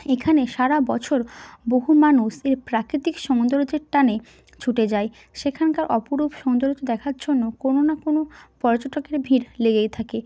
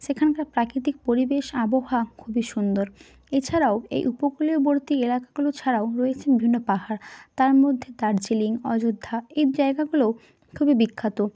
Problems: constant background noise